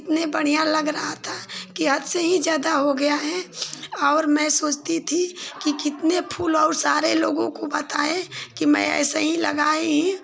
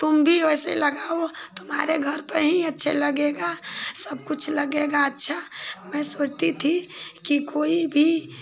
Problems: constant background noise